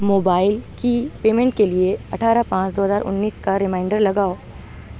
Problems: none marked